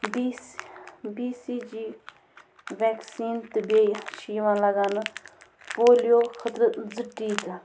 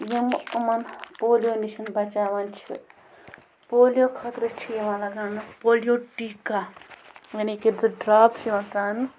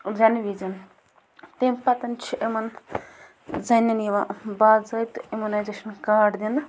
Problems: constant background noise